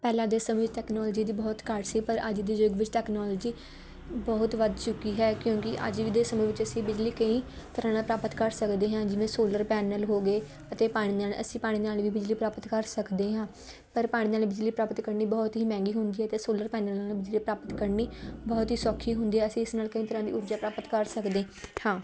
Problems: background sounds at intervals